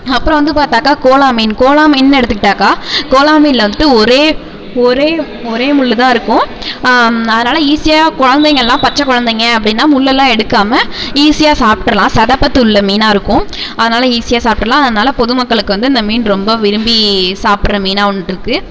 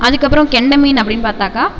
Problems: background sounds at intervals, echo